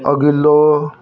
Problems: none marked